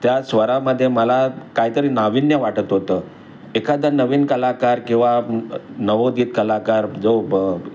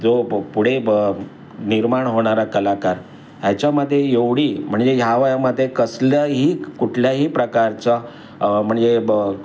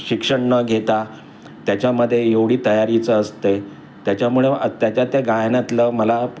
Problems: none marked